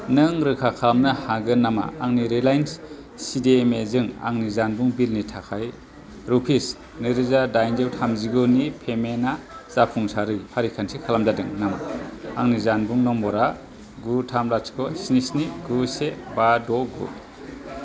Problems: constant background noise